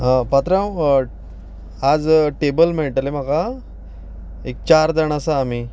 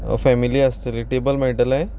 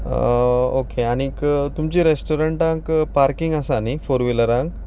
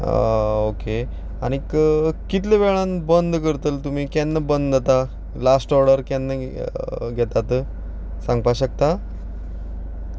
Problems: background sounds at intervals, background conversations at intervals